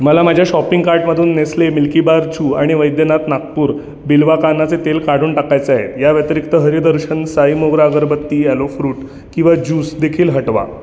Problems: none marked